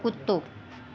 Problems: constant background noise